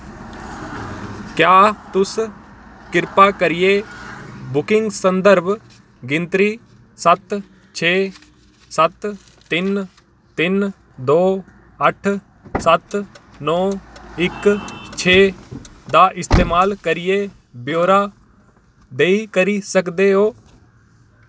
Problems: none marked